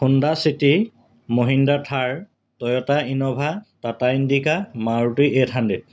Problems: constant background noise